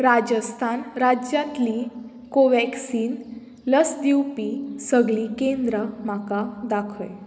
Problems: background sounds at intervals